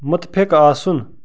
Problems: background sounds at intervals